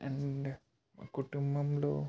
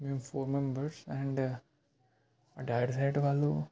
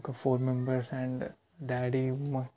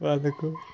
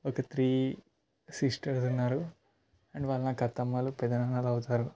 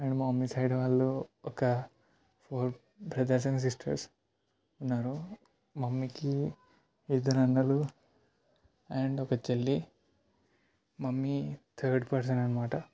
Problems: none marked